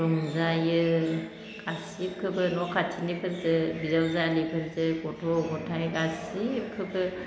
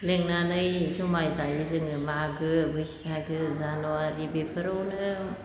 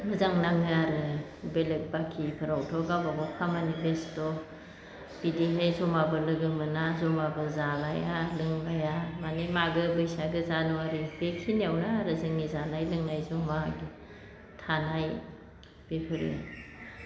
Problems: constant background noise